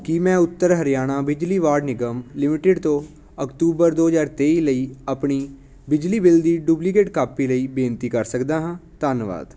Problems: constant background noise